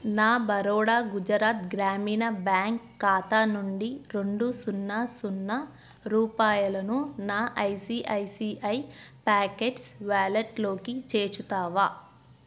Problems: none marked